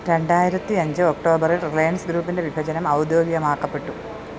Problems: none marked